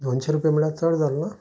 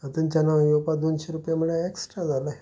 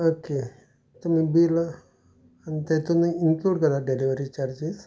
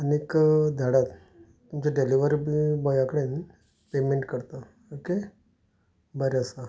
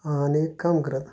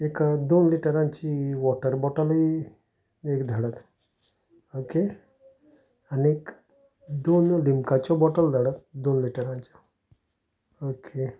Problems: background sounds at intervals, continuous background conversations